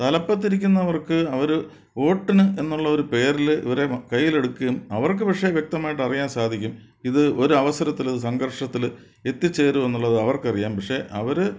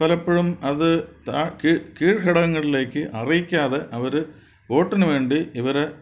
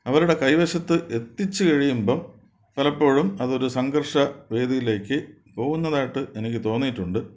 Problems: none marked